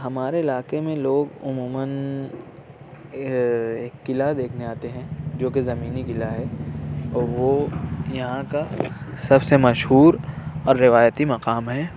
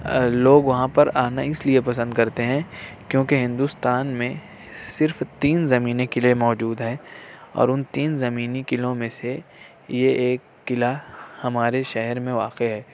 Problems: background sounds at intervals